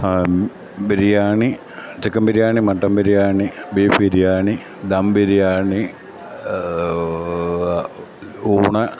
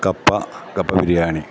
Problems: none marked